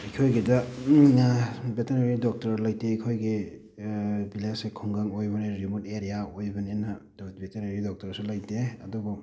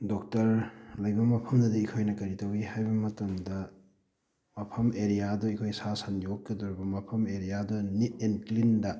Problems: background sounds at intervals